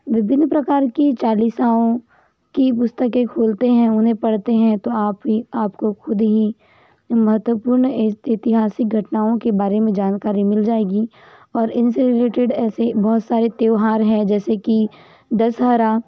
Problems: background sounds at intervals